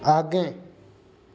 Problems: none marked